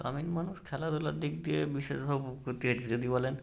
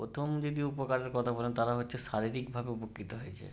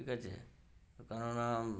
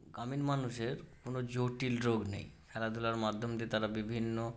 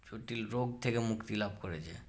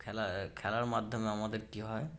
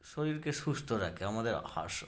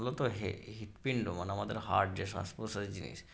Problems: none marked